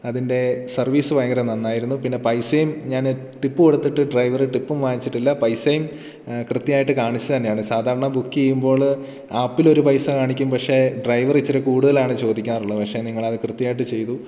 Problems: none marked